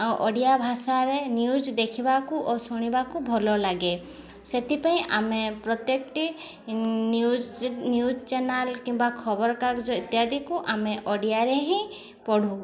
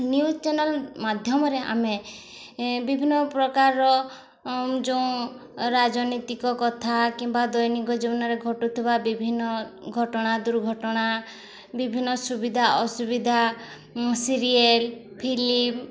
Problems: constant background noise, continuous background conversations